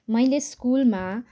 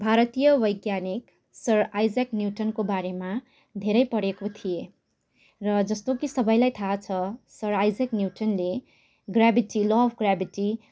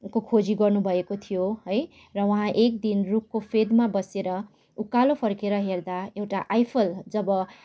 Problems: background sounds at intervals